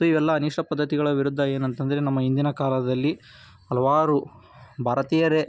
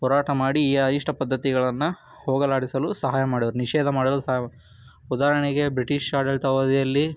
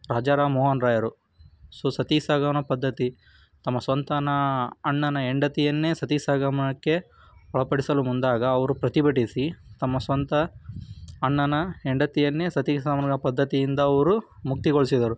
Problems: background sounds at intervals